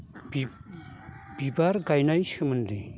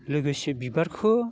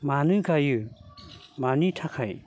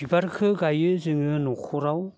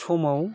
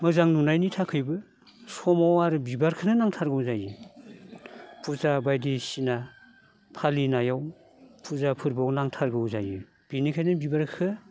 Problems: none marked